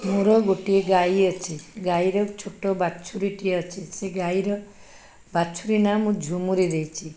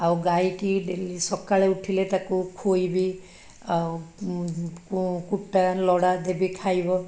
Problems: background sounds at intervals